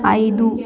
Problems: background sounds at intervals